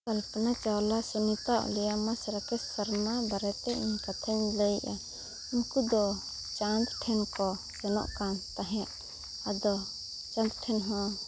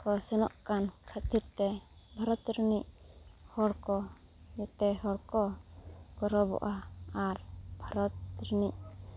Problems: constant background noise